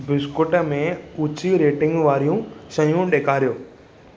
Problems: constant background noise